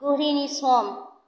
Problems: none marked